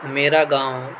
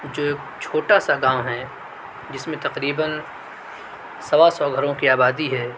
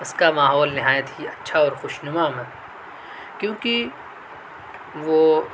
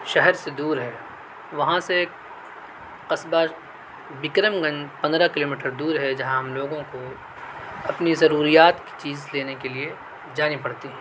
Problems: none marked